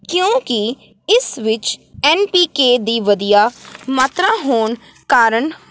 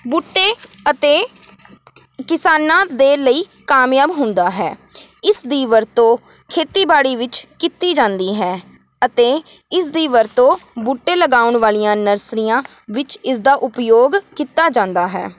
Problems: none marked